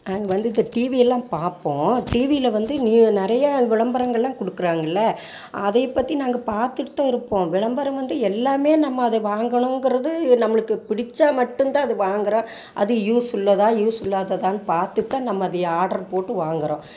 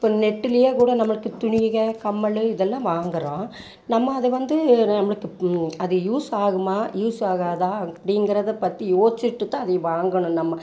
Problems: none marked